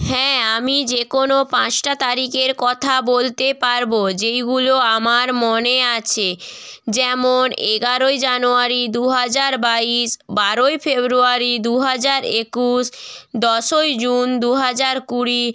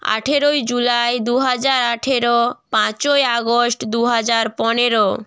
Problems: none marked